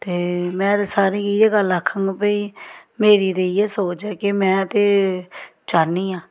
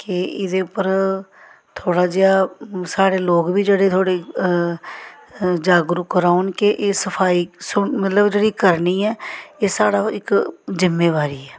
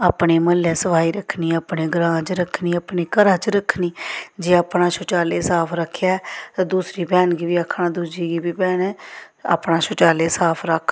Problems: none marked